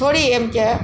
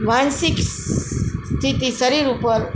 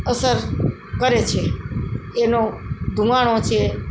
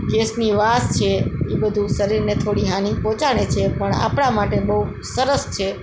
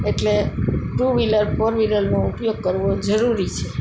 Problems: constant background noise